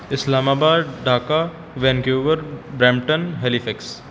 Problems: background sounds at intervals